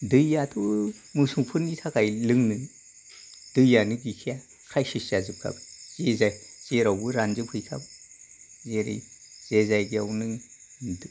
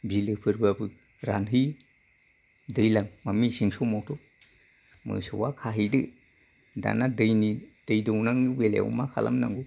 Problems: low volume